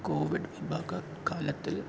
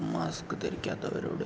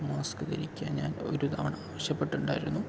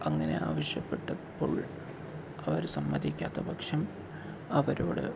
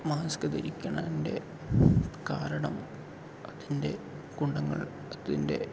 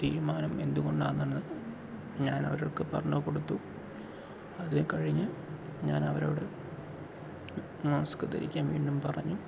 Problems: constant background noise, low volume